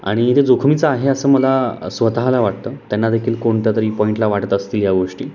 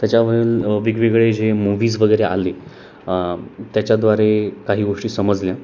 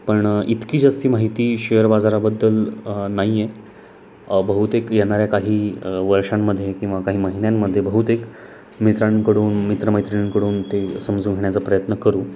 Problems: none marked